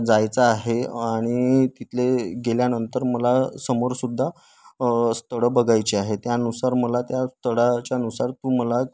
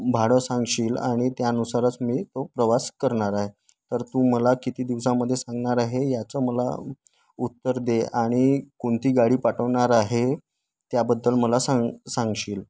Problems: constant background noise